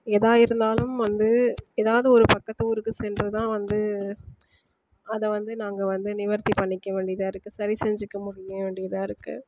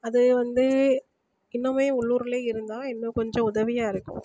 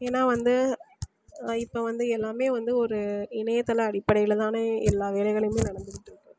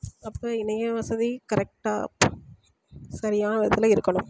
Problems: constant background noise